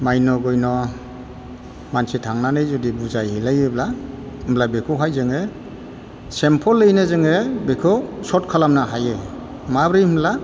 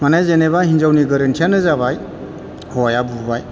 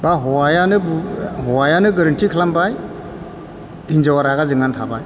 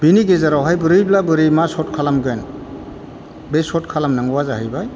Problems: none marked